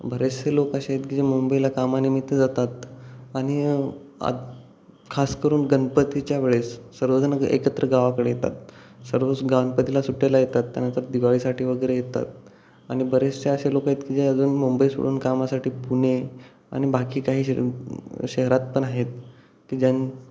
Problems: none marked